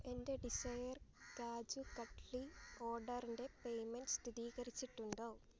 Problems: background sounds at intervals, low volume